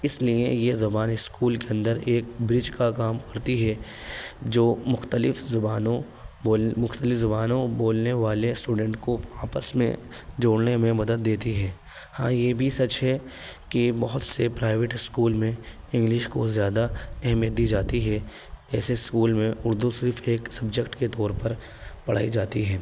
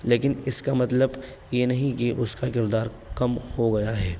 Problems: background sounds at intervals